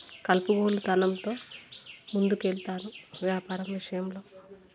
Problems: none marked